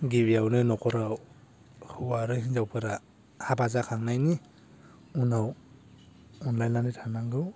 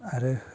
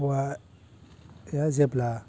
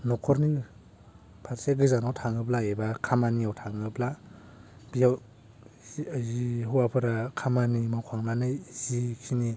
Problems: low volume